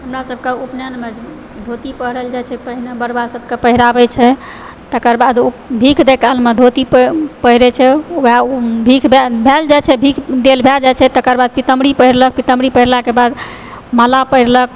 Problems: background sounds at intervals